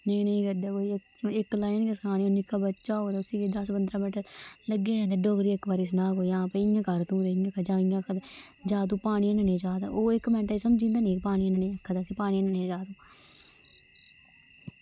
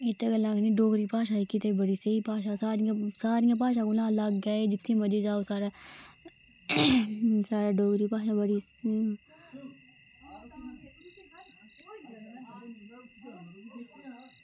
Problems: constant background noise